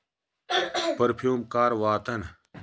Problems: background sounds at intervals